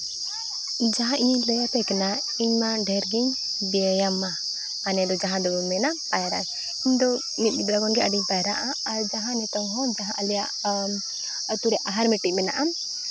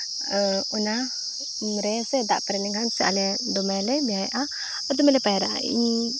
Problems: constant background noise, background conversations at intervals